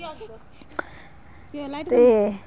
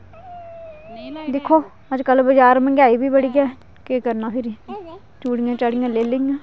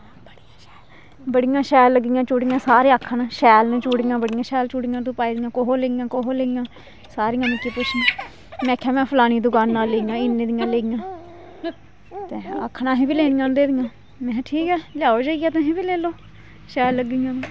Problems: constant background noise